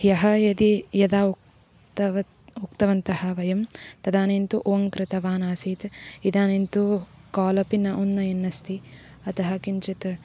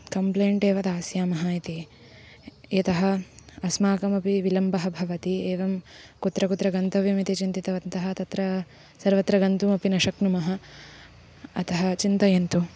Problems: constant background noise